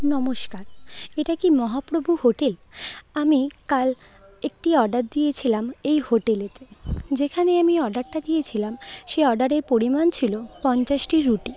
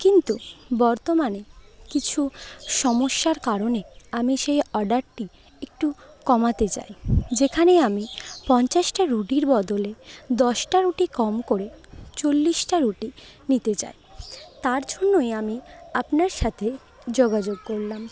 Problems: none marked